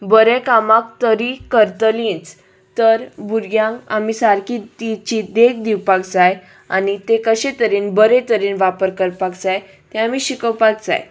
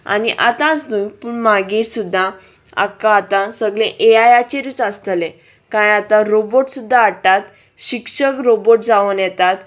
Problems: none marked